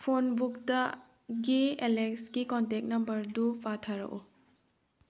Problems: none marked